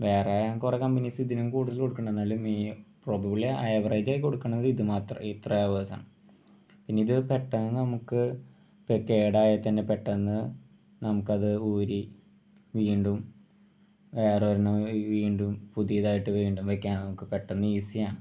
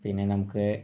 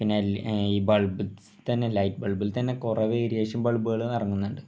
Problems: none marked